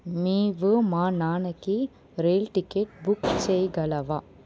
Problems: background sounds at intervals